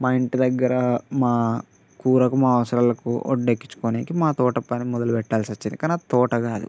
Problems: constant background noise